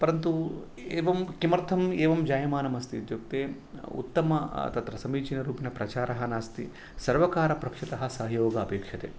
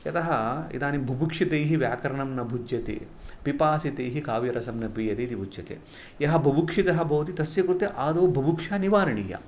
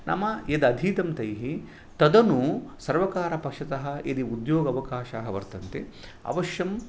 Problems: background sounds at intervals